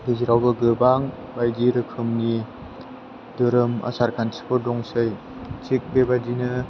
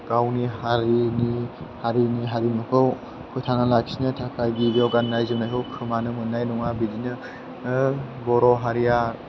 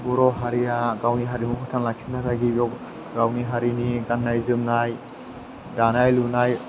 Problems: constant background noise